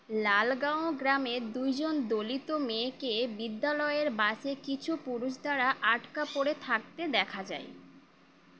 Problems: background sounds at intervals